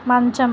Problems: none marked